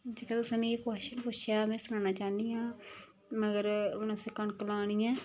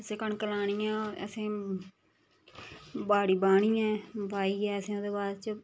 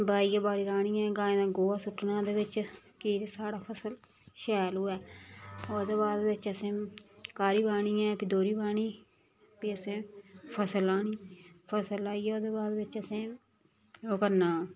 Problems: background sounds at intervals